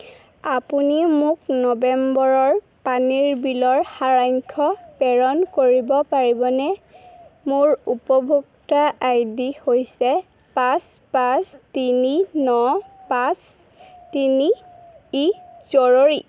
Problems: constant background noise